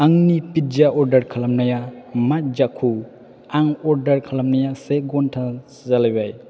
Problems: constant background noise